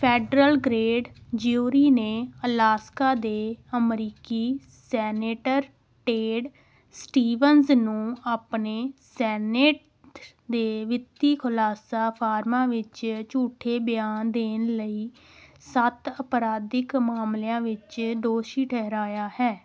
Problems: background sounds at intervals, background conversations at intervals